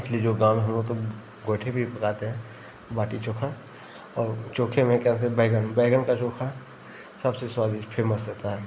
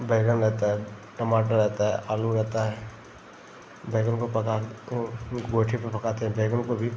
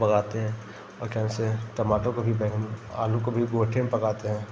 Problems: constant background noise